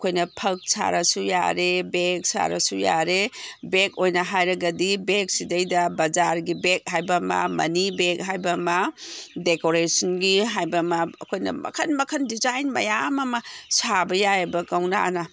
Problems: background sounds at intervals